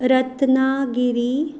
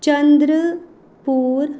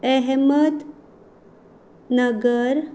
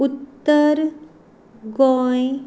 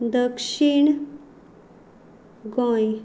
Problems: background sounds at intervals